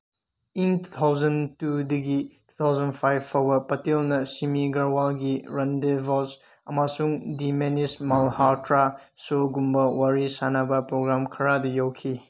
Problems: none marked